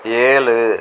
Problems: constant background noise